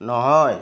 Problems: constant background noise, background conversations at intervals